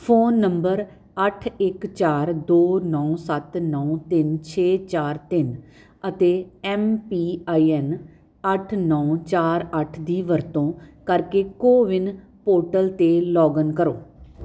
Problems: constant background noise